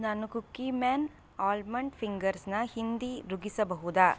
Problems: none marked